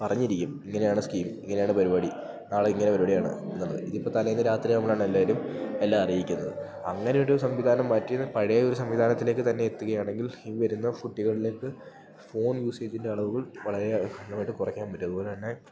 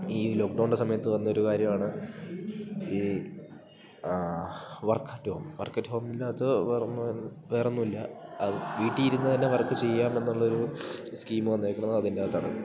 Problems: background sounds at intervals